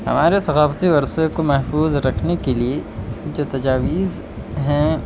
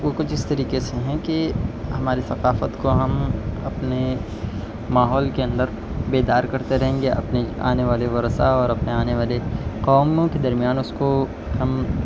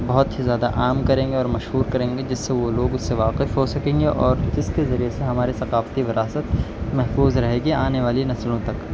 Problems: none marked